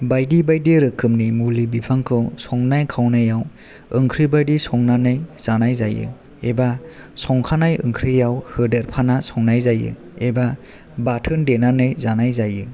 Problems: none marked